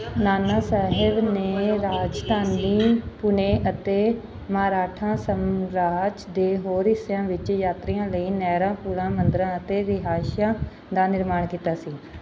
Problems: background conversations at intervals